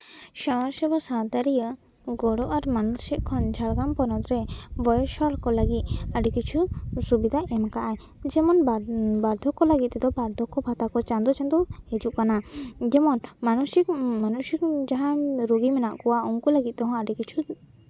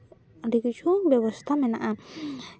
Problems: background sounds at intervals, background conversations at intervals